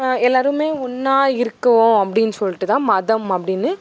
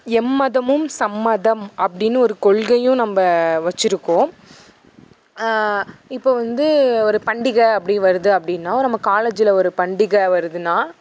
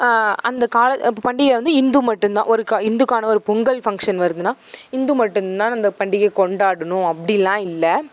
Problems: background sounds at intervals